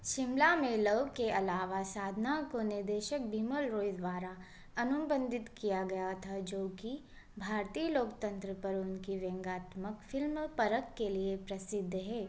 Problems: constant background noise